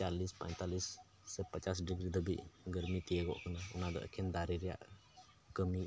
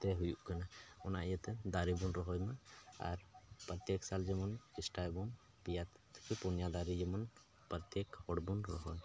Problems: none marked